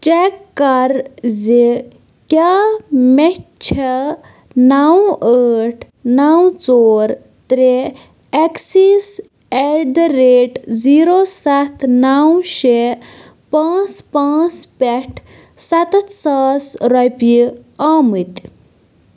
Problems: constant background noise